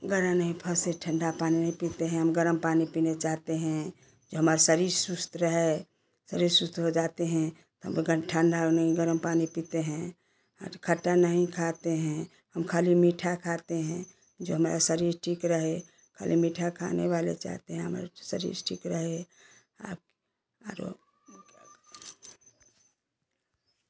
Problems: constant background noise, continuous background conversations